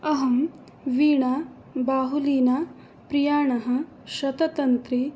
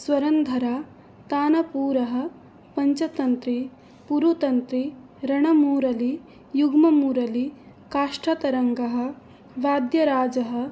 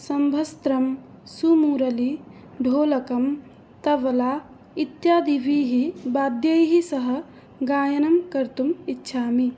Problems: none marked